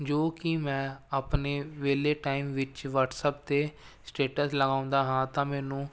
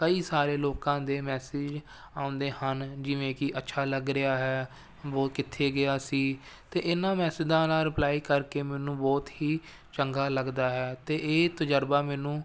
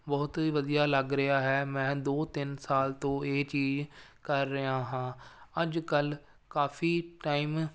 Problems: none marked